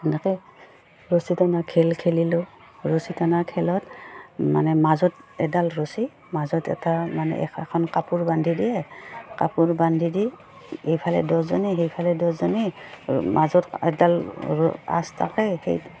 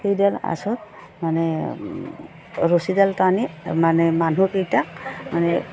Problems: low volume